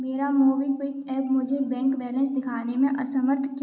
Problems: background sounds at intervals